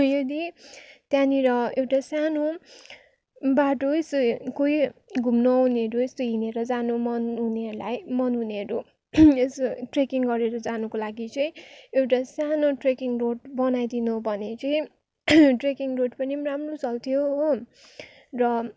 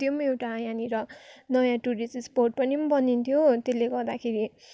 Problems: background sounds at intervals